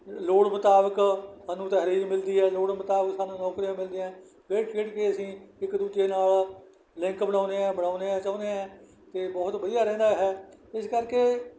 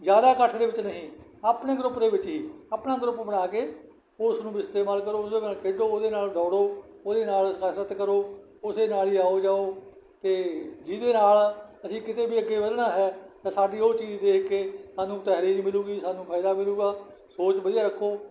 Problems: background sounds at intervals